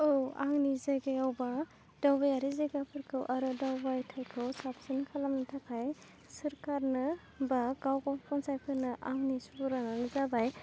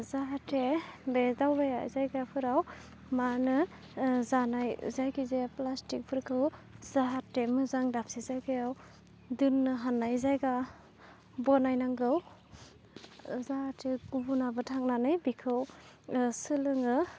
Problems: constant background noise